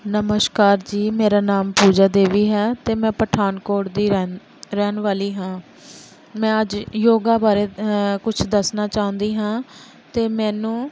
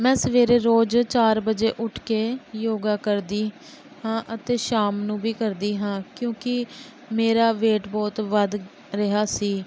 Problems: background sounds at intervals